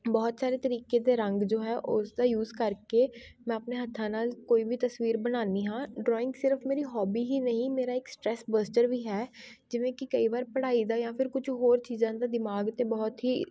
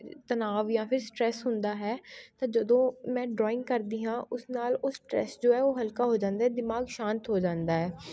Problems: continuous background conversations